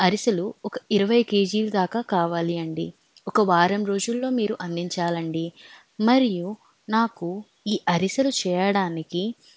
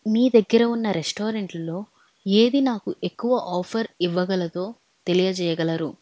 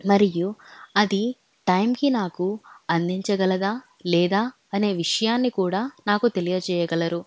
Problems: none marked